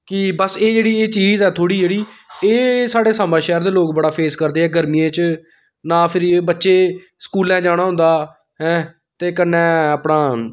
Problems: background sounds at intervals